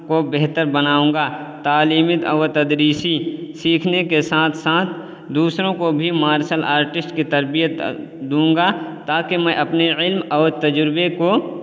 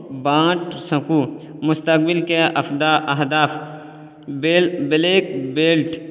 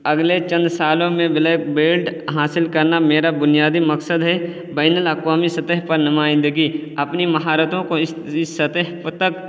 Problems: constant background noise